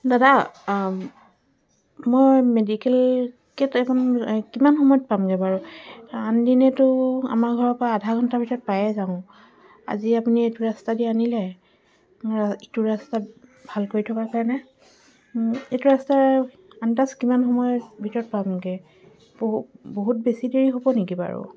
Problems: background sounds at intervals